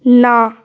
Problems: continuous background conversations